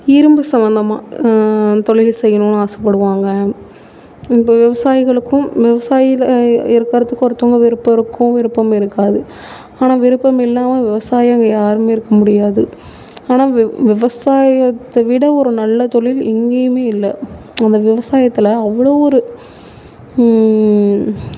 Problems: none marked